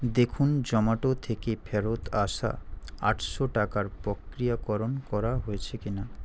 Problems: constant background noise